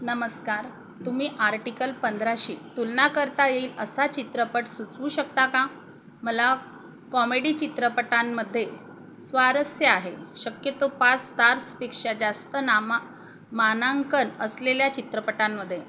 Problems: none marked